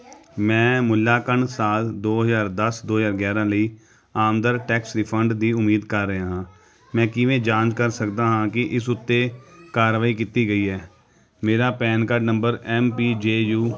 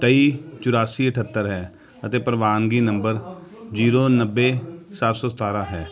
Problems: continuous background conversations